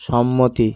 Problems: constant background noise